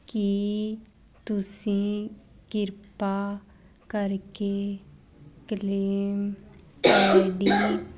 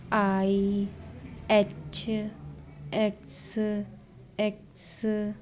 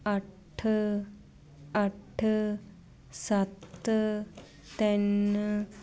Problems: constant background noise